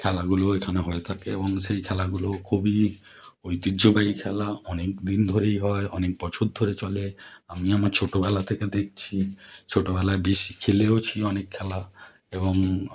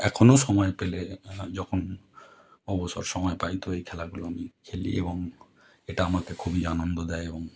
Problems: none marked